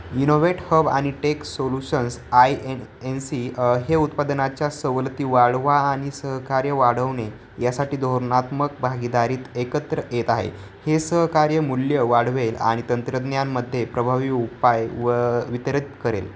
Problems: none marked